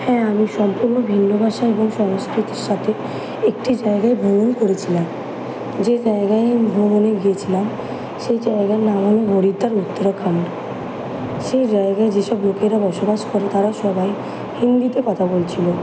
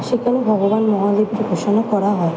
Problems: constant background noise